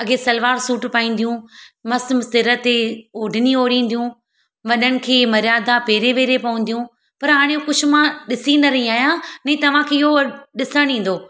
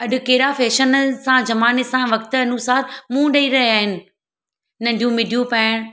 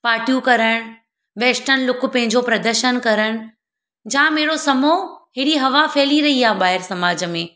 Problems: none marked